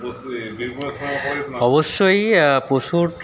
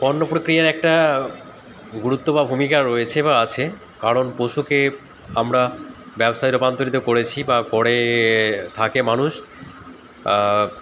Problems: constant background noise, continuous background conversations